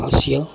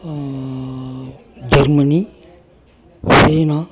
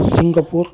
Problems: continuous background conversations